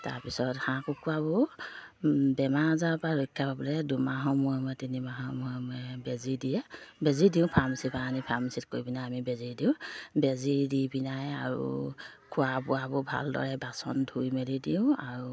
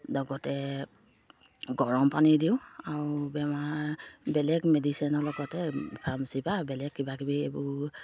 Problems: low volume